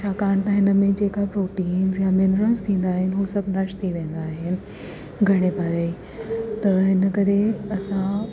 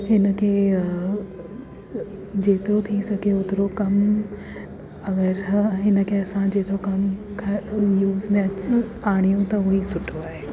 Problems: constant background noise